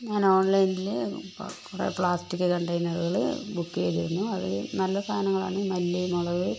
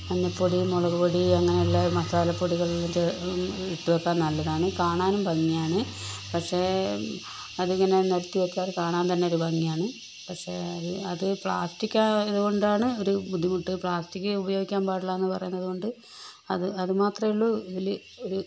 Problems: constant background noise, low volume